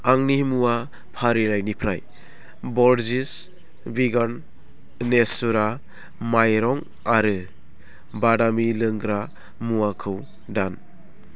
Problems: constant background noise